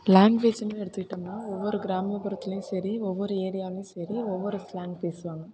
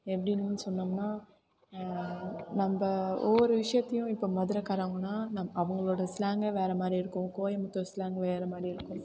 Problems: constant background noise, background conversations at intervals